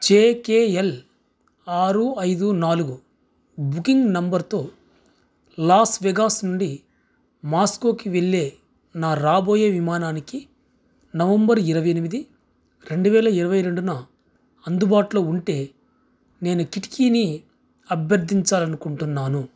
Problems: background sounds at intervals